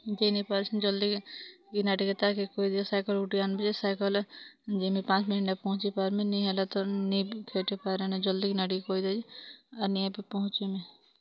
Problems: background sounds at intervals, background conversations at intervals